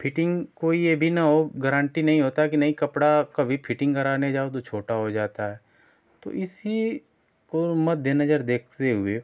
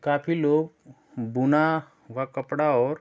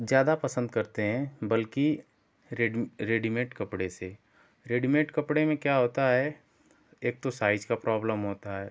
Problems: none marked